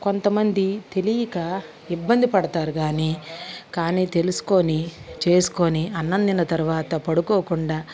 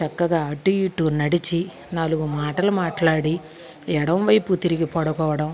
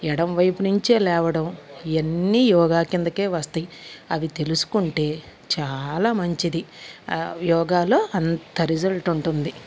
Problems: constant background noise